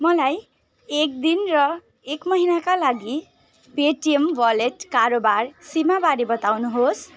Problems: background sounds at intervals